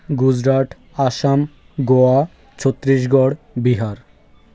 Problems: constant background noise, background conversations at intervals